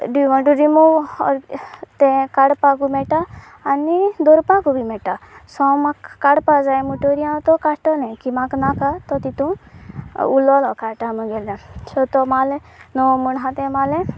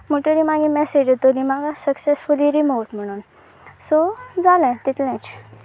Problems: none marked